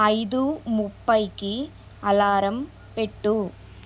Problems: constant background noise